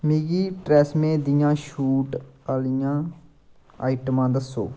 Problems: constant background noise